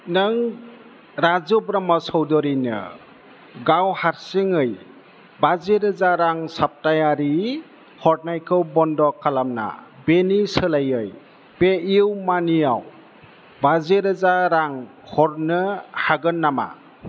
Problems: none marked